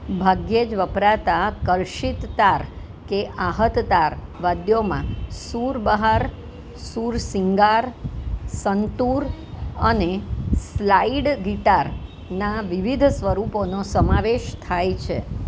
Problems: none marked